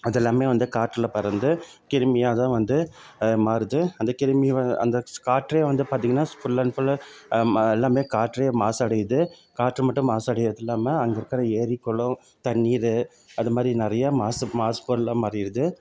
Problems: background sounds at intervals